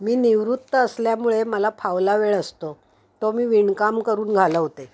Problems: background sounds at intervals